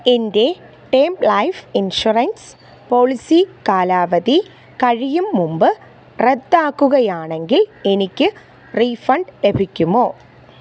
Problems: background sounds at intervals